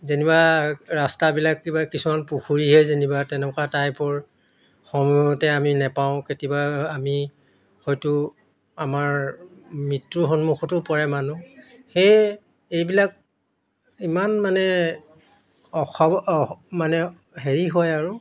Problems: none marked